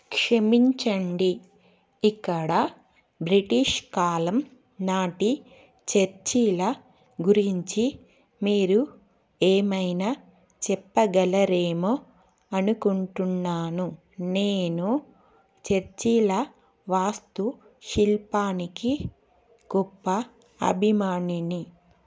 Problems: none marked